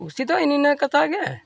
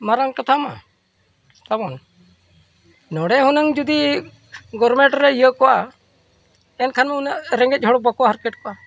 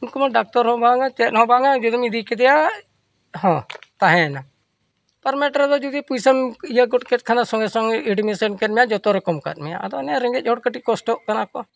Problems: none marked